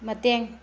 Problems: low volume